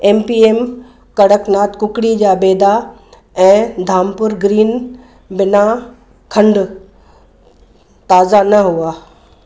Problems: none marked